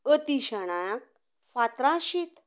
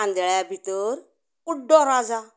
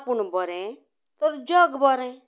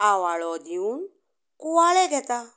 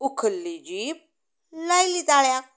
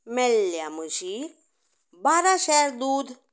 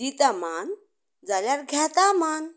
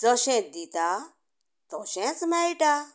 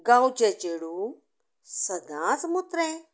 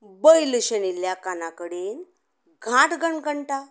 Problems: none marked